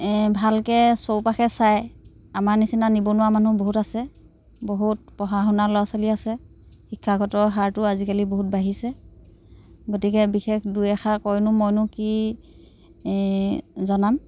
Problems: constant background noise